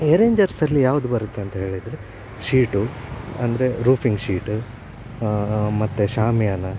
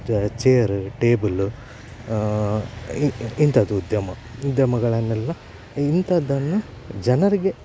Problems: constant background noise